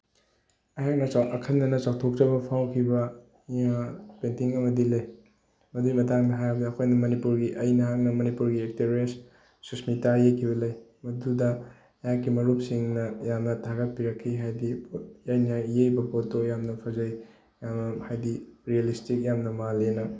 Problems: background sounds at intervals